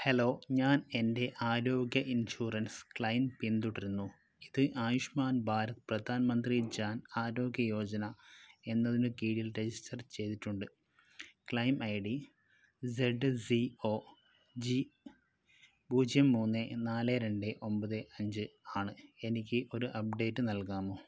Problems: none marked